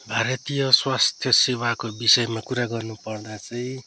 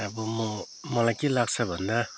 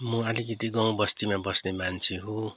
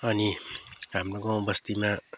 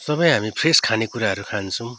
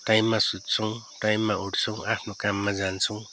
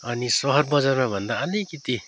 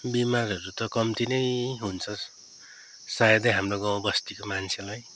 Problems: constant background noise, background conversations at intervals